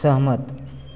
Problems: constant background noise, echo